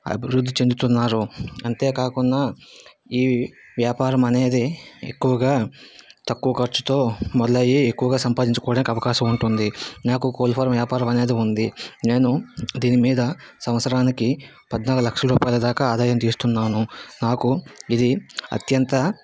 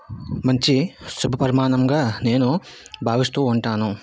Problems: background sounds at intervals